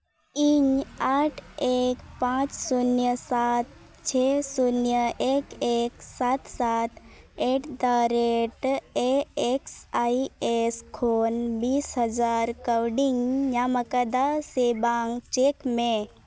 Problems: constant background noise